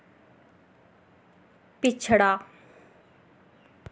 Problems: none marked